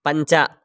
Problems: none marked